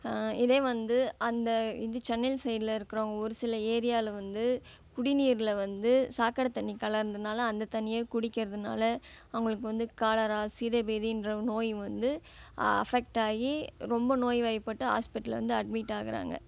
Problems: background sounds at intervals